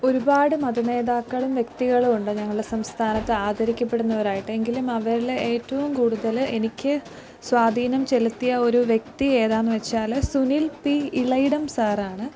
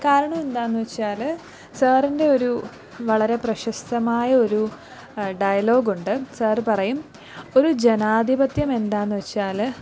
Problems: background sounds at intervals, low volume